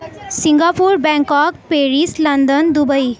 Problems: none marked